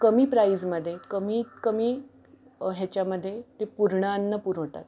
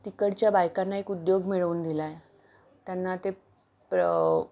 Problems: background sounds at intervals